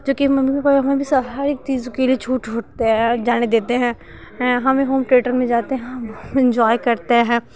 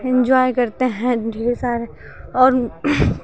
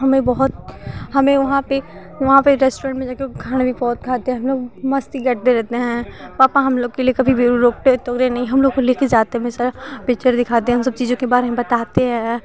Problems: none marked